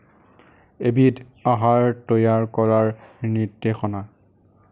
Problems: none marked